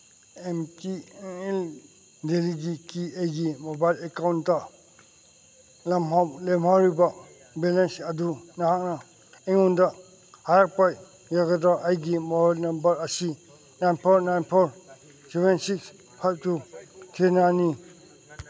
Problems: background sounds at intervals, background conversations at intervals